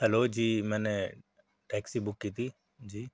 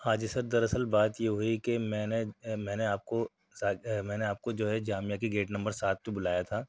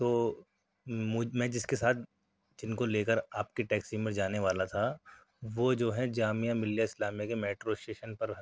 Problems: none marked